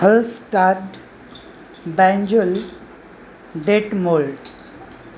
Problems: constant background noise